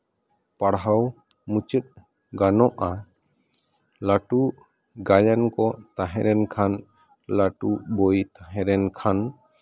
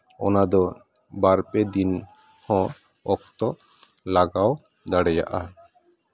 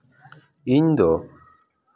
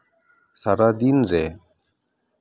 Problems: continuous background conversations